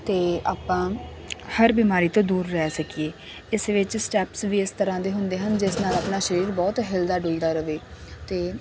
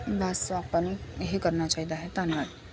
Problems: constant background noise, background conversations at intervals